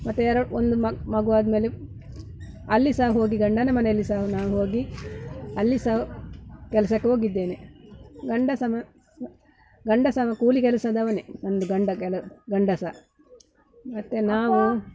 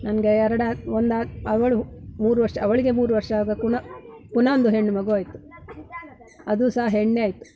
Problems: background sounds at intervals